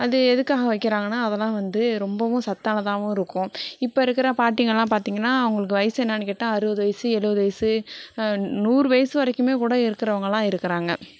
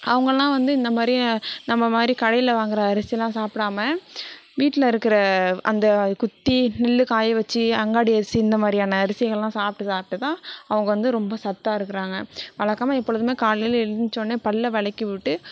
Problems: background conversations at intervals